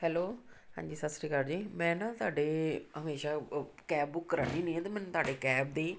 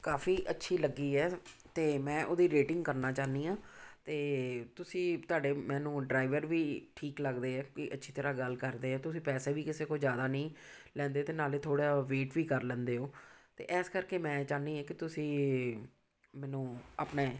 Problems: background sounds at intervals